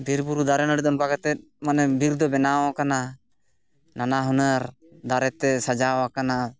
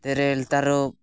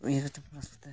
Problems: none marked